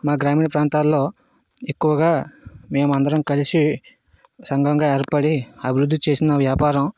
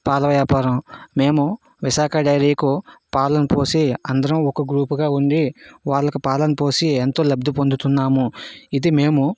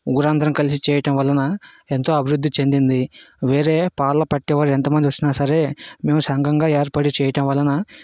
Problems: background sounds at intervals